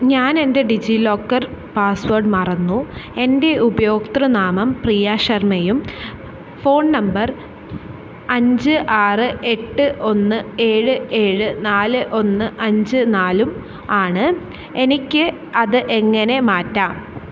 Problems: none marked